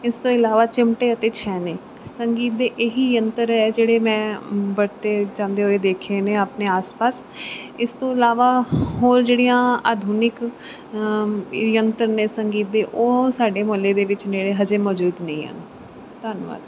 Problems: background sounds at intervals